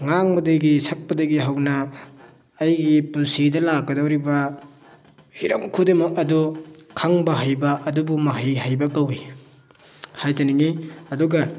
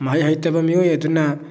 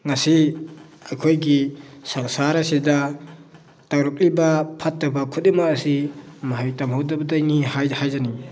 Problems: background sounds at intervals